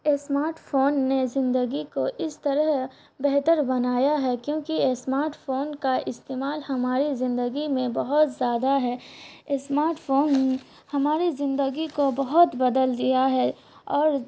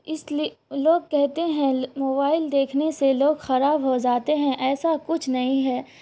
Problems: constant background noise